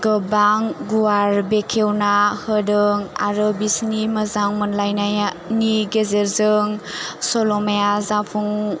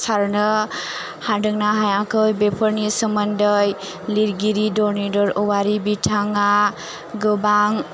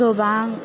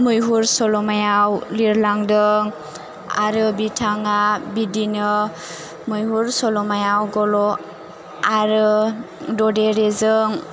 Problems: none marked